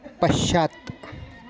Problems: constant background noise, background conversations at intervals